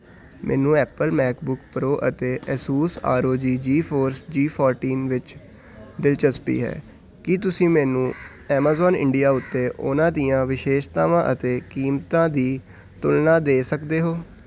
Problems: none marked